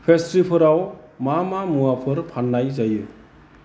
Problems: constant background noise